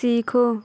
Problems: none marked